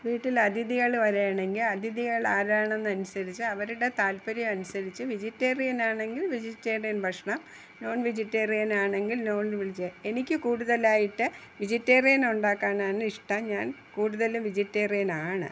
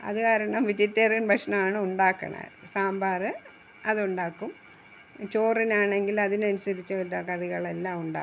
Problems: none marked